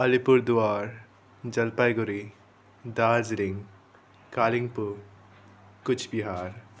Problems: constant background noise